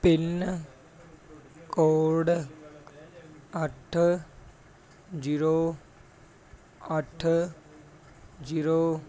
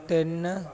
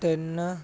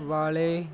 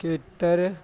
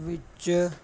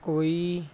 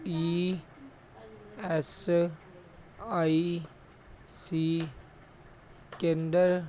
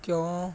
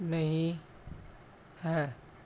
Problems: background conversations at intervals